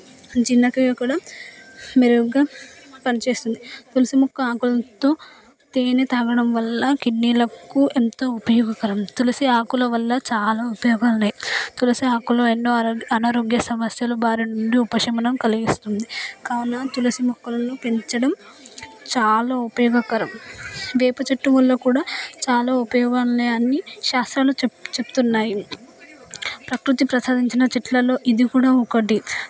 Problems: constant background noise